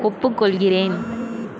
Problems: constant background noise